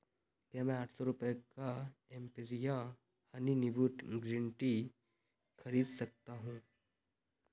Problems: none marked